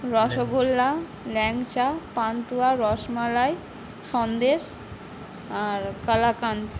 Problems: background conversations at intervals